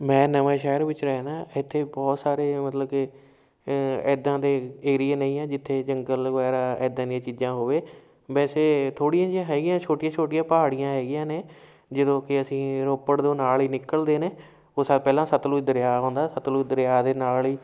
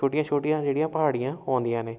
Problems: background sounds at intervals